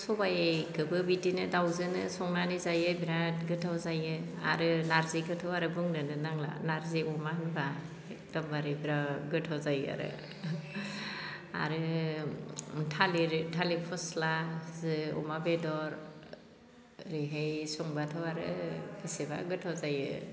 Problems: none marked